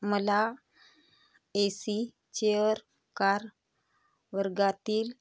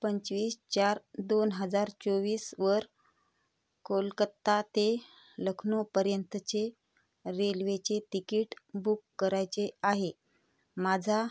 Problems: none marked